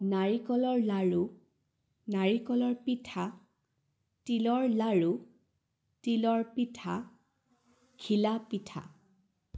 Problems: none marked